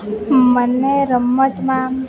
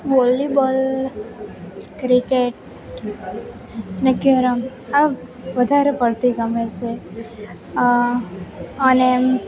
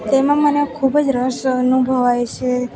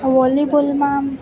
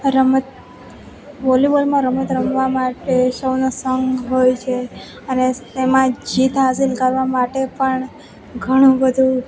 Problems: constant background noise